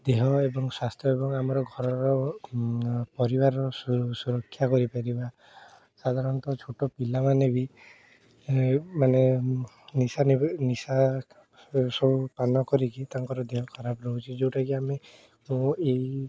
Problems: constant background noise, background conversations at intervals